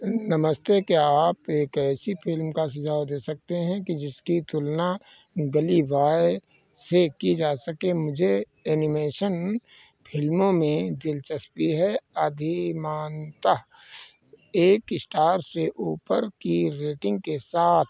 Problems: background sounds at intervals